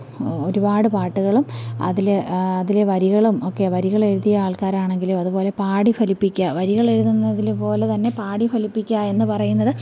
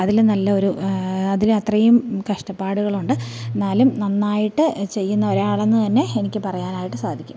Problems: background sounds at intervals